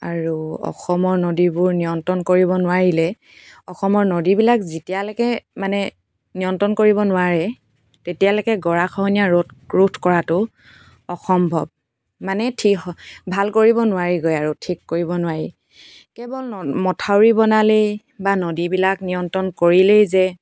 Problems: background sounds at intervals